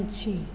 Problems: low volume